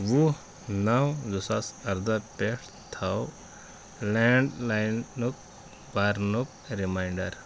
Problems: background sounds at intervals